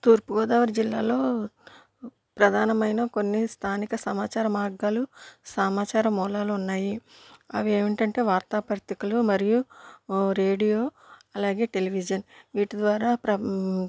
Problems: none marked